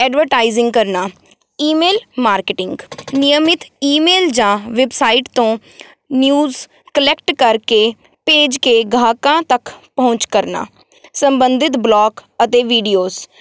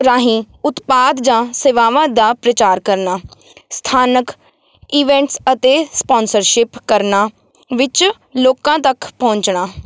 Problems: none marked